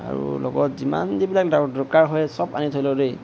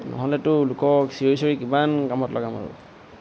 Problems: constant background noise